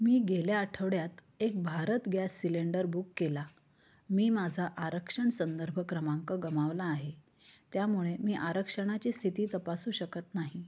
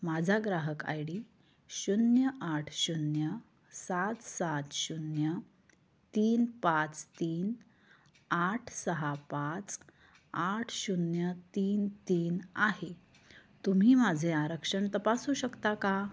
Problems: low volume